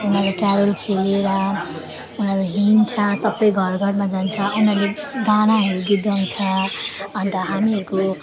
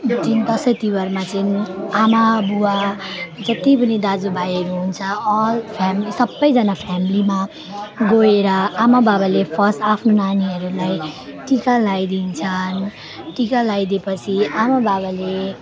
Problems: constant background noise, continuous background conversations